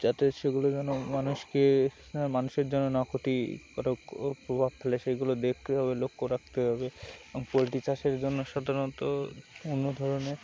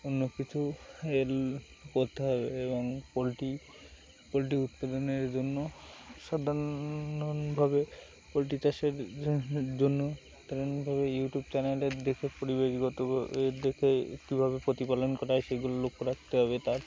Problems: constant background noise